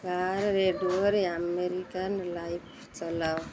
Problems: background sounds at intervals